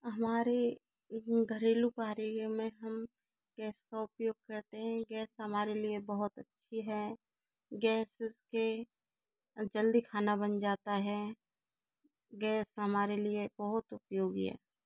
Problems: low volume